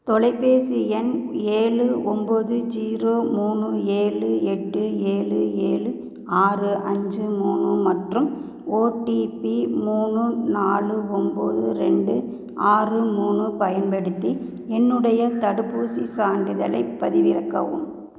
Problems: none marked